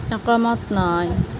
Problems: constant background noise